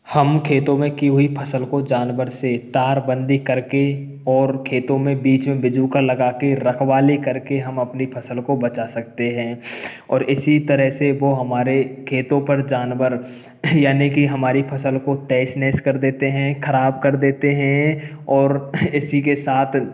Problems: background sounds at intervals